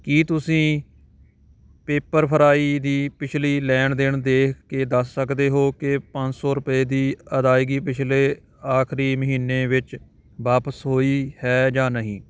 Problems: constant background noise